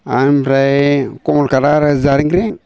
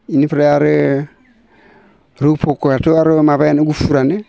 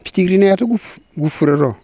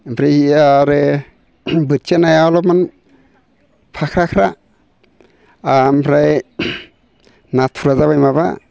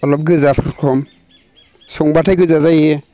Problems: constant background noise